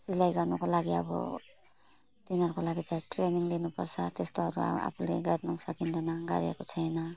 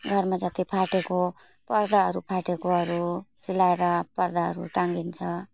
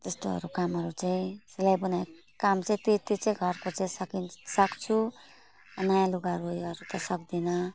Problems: none marked